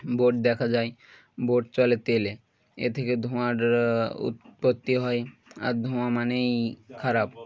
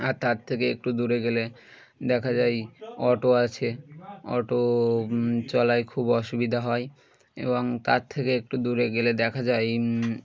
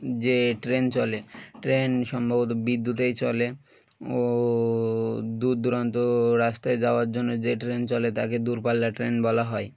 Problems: background sounds at intervals, background conversations at intervals